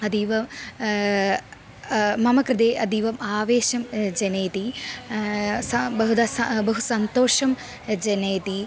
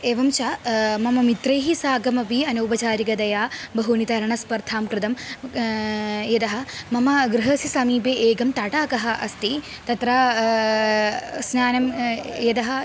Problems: constant background noise